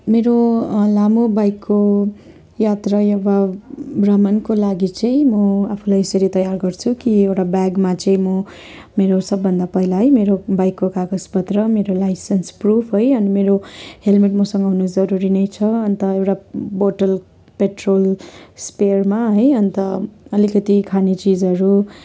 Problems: continuous background conversations